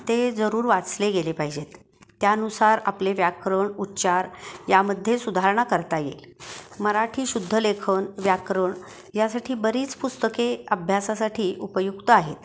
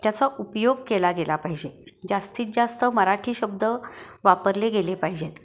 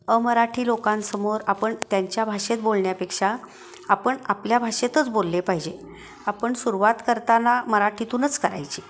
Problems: none marked